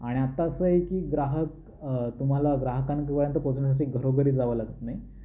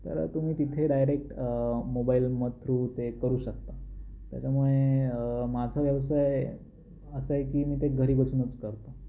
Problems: none marked